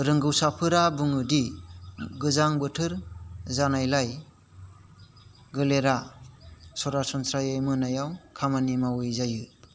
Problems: constant background noise